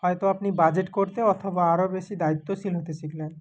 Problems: constant background noise